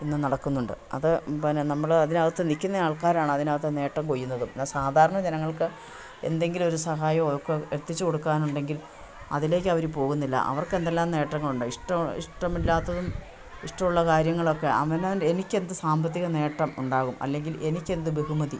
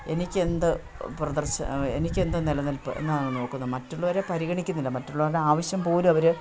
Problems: none marked